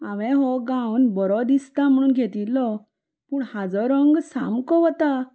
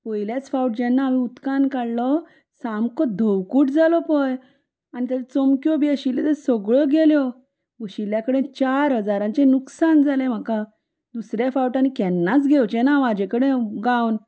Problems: none marked